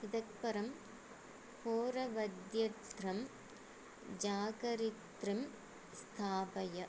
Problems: low volume